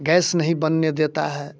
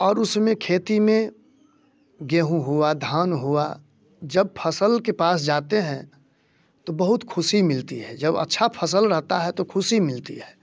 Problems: none marked